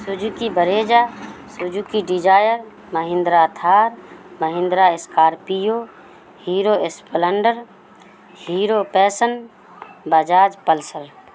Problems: constant background noise